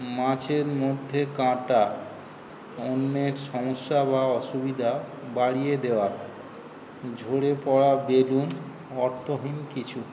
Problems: constant background noise